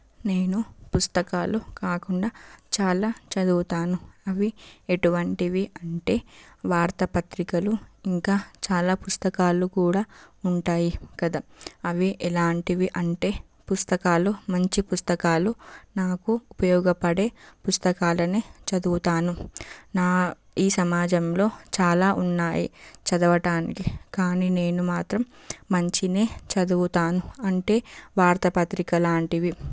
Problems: background sounds at intervals